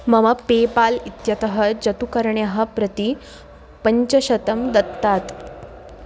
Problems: constant background noise